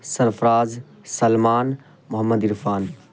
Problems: constant background noise